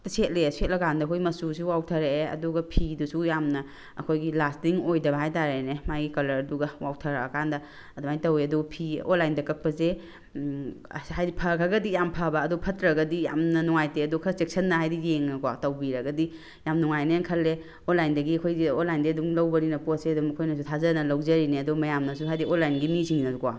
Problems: background sounds at intervals